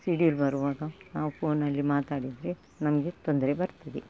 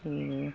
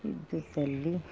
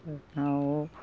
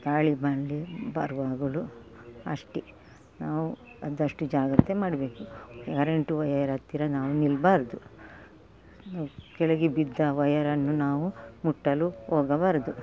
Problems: background sounds at intervals